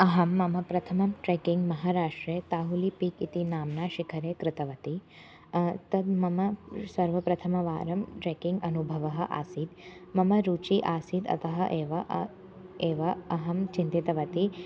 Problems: constant background noise